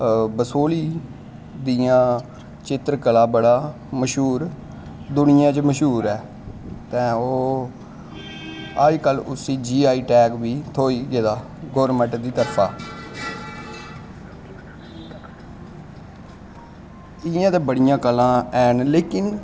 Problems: constant background noise, continuous background conversations